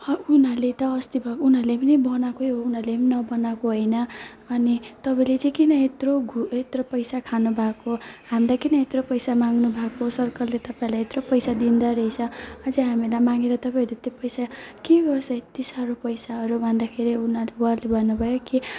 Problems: background sounds at intervals, background conversations at intervals, low volume